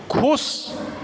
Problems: background sounds at intervals